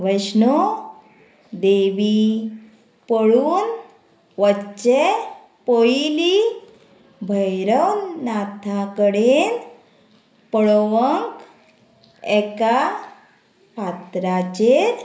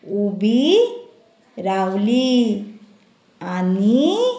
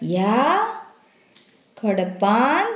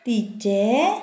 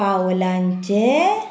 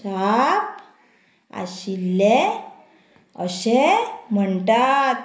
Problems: constant background noise